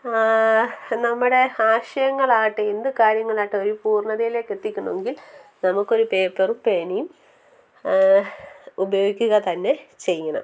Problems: background conversations at intervals, low volume